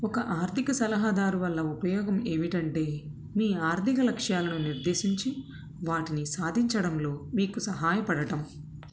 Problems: none marked